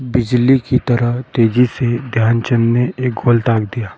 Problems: background sounds at intervals